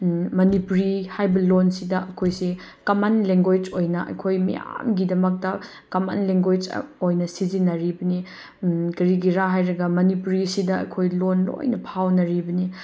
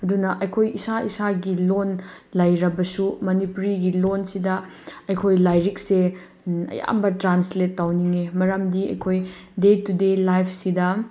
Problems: none marked